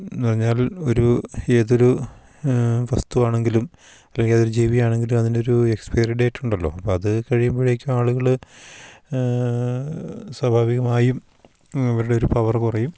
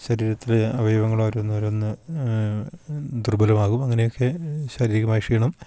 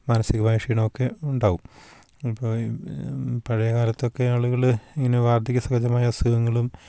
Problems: none marked